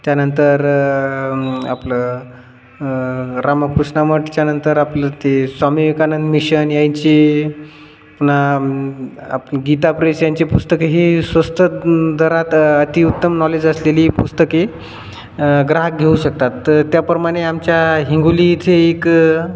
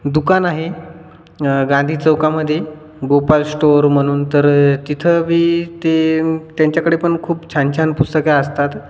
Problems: none marked